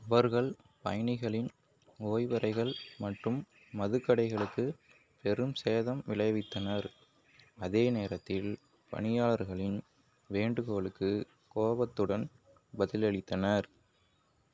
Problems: none marked